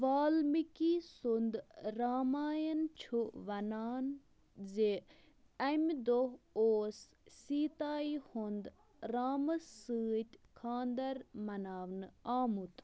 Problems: none marked